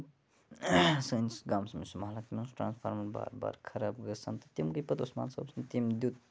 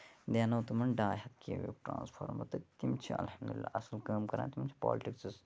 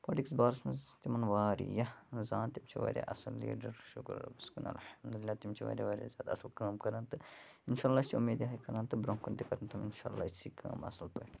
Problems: none marked